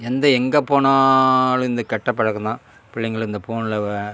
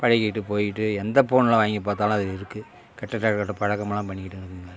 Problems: constant background noise